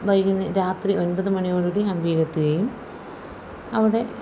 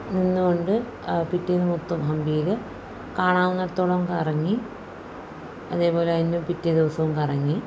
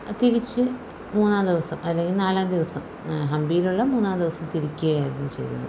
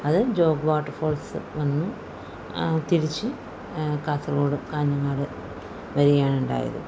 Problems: none marked